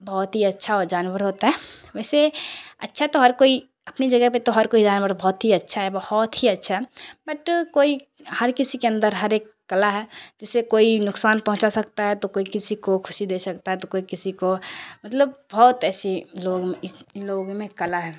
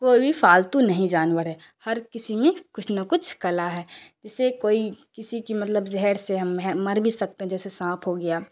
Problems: constant background noise